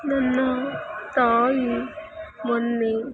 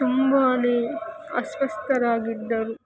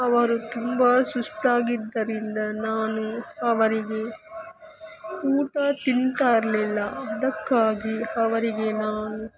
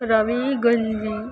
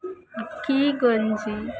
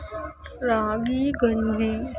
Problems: constant background noise, continuous background conversations